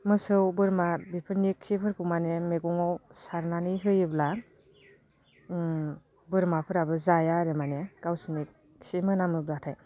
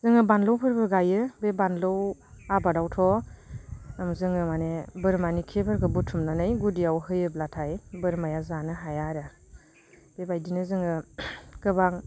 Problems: none marked